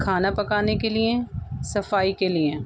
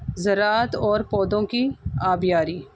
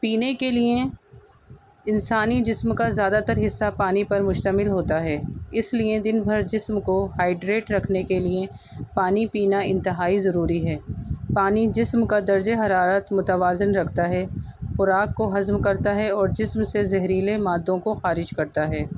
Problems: constant background noise